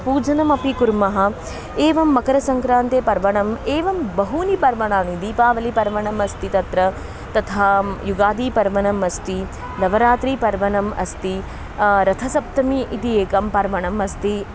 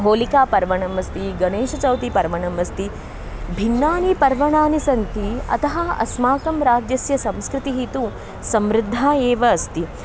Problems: none marked